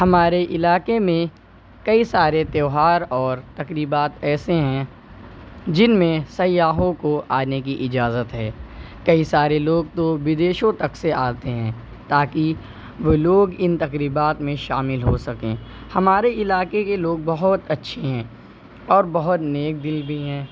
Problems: constant background noise